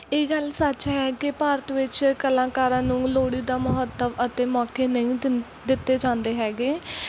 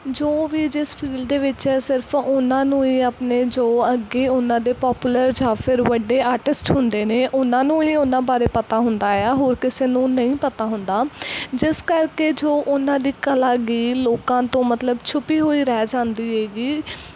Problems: none marked